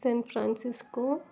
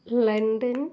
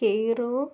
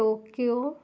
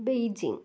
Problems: low volume